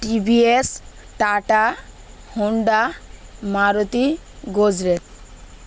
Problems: none marked